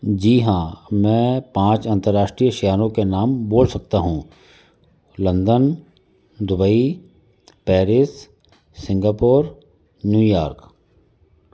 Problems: constant background noise